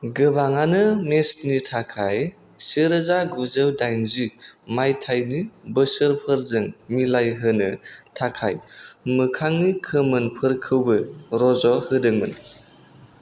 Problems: none marked